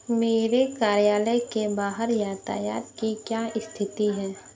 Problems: constant background noise